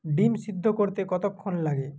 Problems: none marked